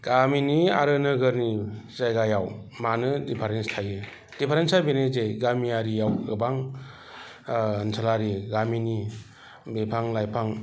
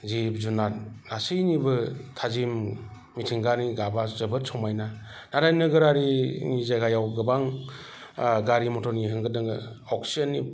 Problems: none marked